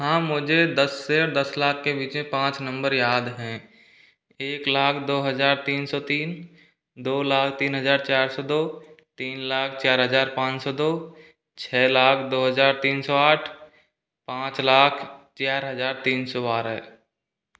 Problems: background sounds at intervals